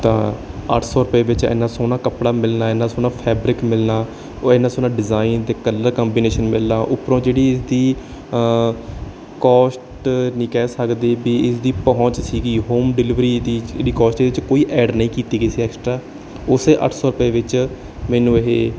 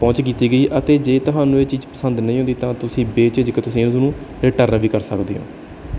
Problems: background sounds at intervals